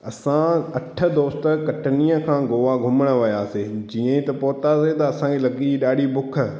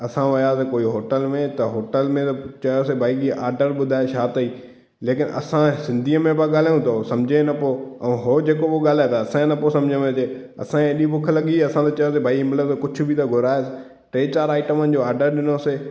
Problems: echo